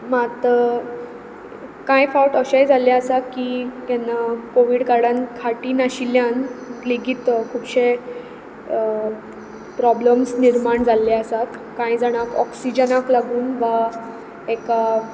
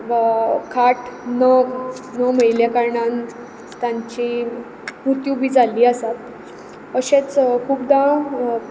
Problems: background sounds at intervals